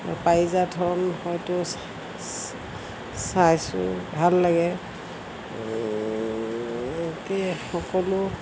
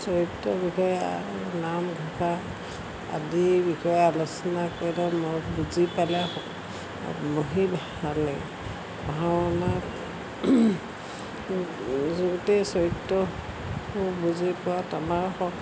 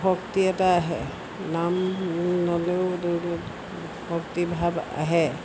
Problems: constant background noise